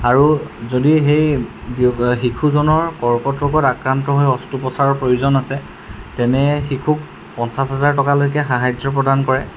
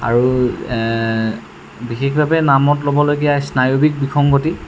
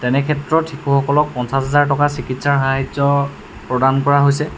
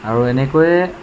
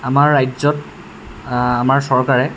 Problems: none marked